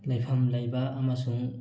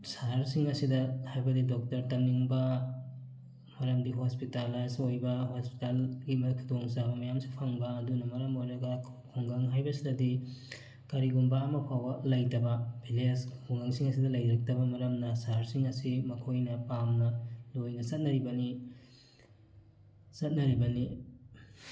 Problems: background sounds at intervals, background conversations at intervals